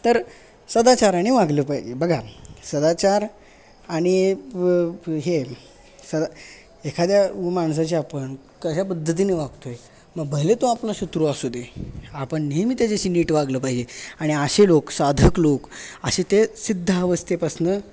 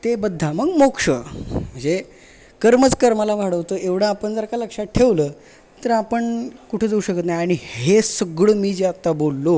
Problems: constant background noise, continuous background conversations